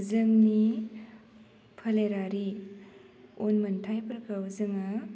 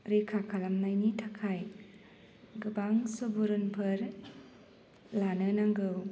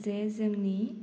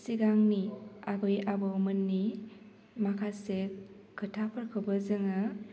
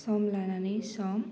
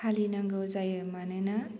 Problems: low volume